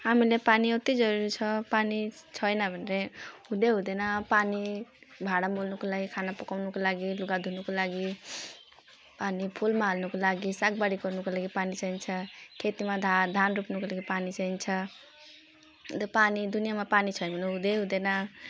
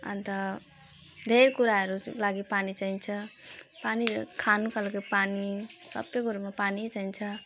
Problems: background sounds at intervals